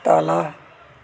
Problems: constant background noise